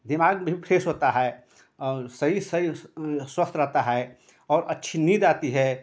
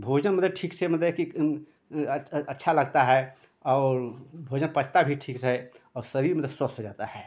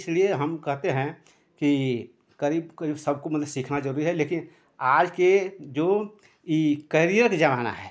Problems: none marked